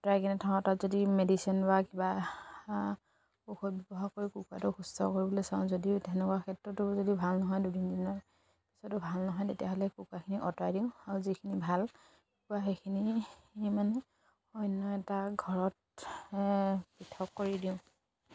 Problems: constant background noise